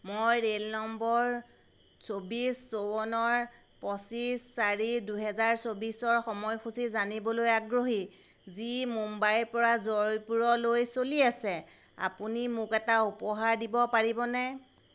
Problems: constant background noise